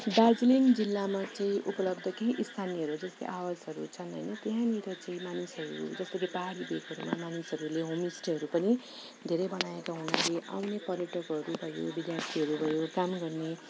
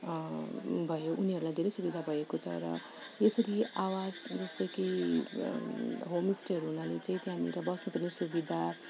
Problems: background sounds at intervals